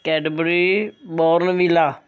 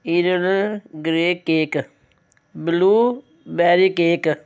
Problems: none marked